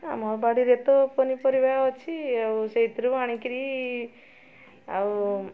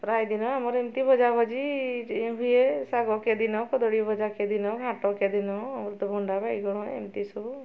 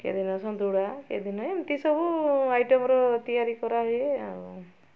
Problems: constant background noise